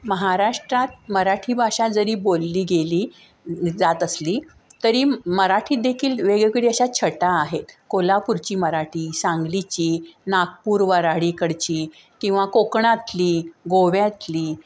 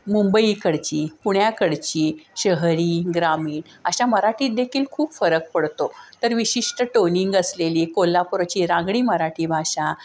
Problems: constant background noise